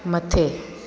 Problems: constant background noise, echo